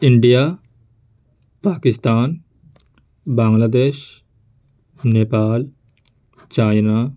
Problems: constant background noise